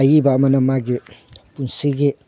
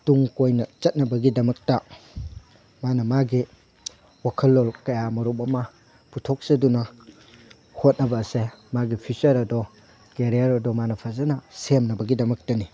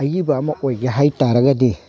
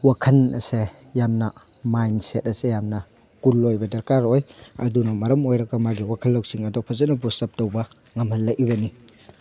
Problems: none marked